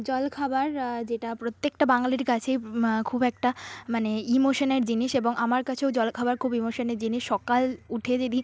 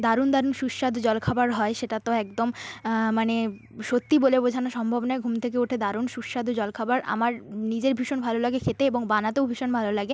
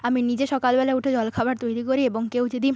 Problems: none marked